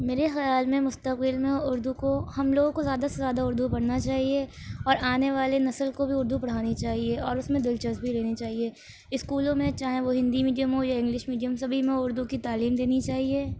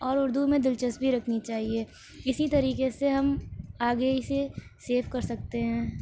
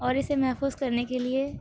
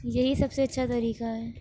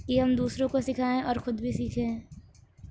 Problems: none marked